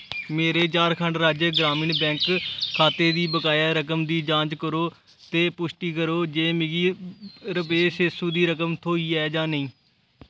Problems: none marked